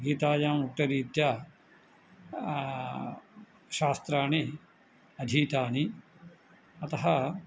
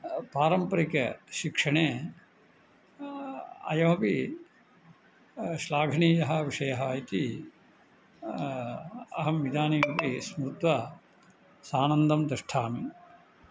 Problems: none marked